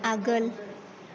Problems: background sounds at intervals, background conversations at intervals